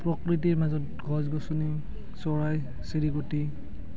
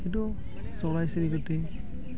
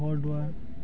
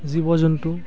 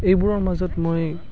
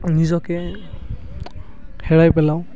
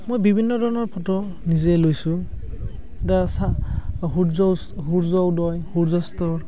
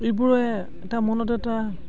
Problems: constant background noise